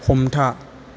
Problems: constant background noise